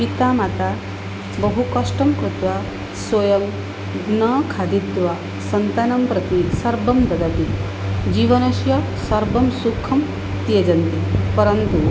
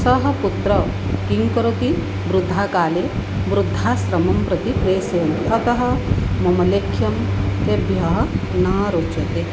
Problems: none marked